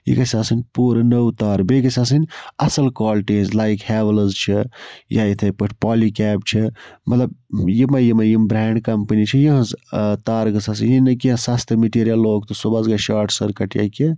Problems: background sounds at intervals